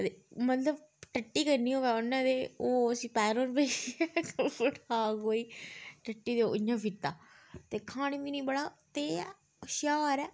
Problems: background conversations at intervals